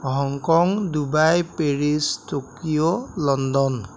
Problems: constant background noise